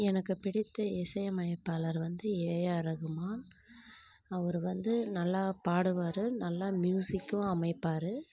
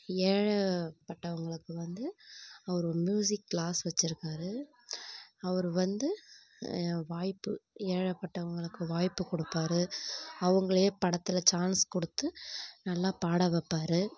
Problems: low volume